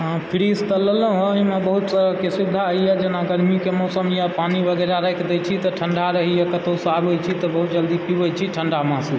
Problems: low volume